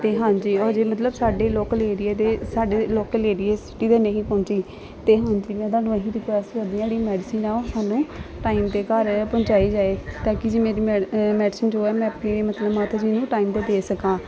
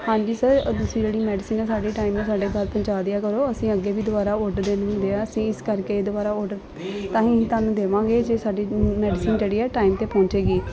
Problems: constant background noise, continuous background conversations